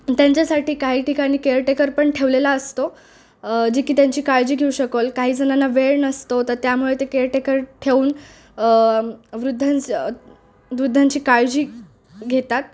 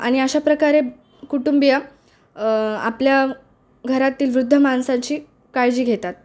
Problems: constant background noise